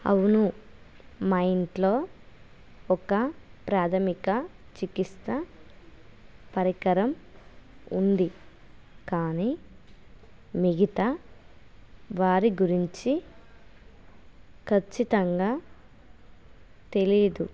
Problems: none marked